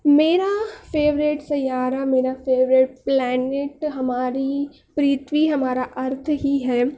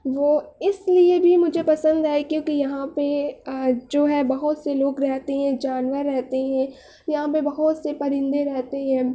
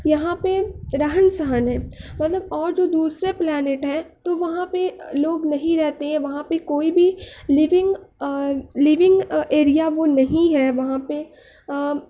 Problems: none marked